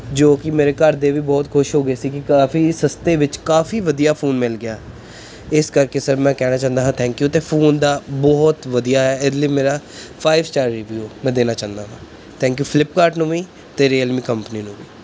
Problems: background sounds at intervals